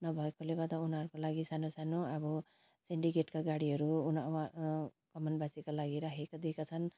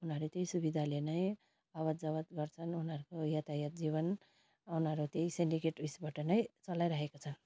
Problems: constant background noise